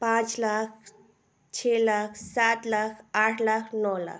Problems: none marked